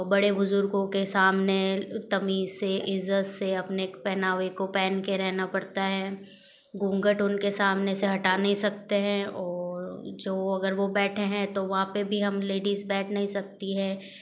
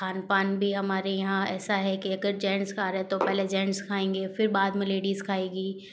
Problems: background sounds at intervals